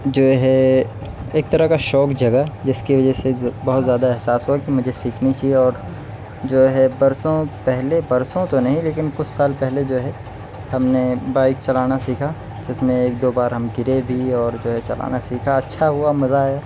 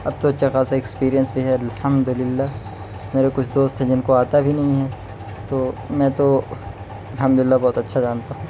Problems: none marked